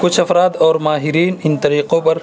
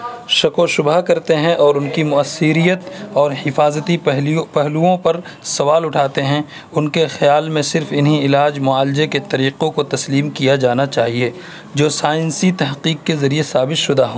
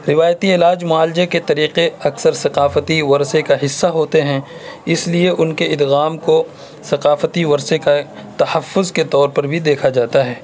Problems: constant background noise